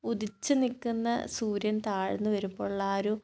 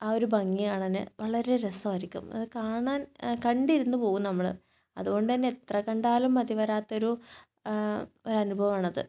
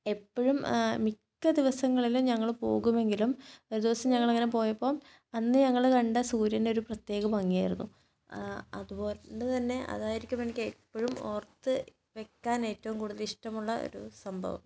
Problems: none marked